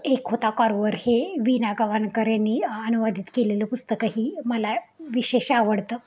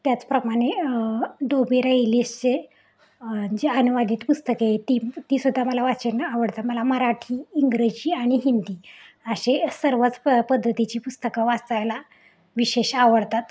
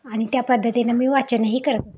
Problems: none marked